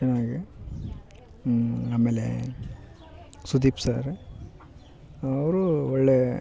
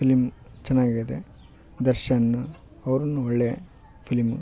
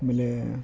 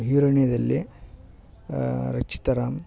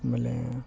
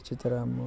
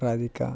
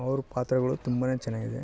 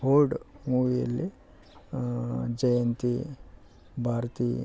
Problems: none marked